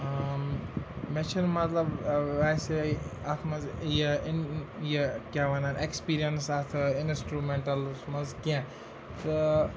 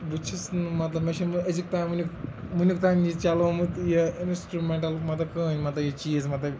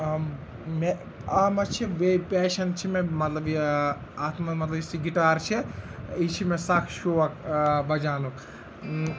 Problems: constant background noise, continuous background conversations